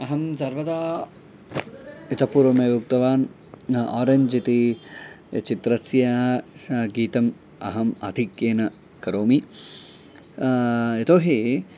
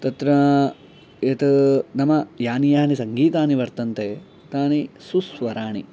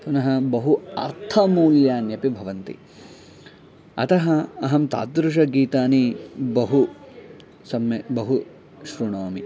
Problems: none marked